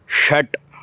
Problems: constant background noise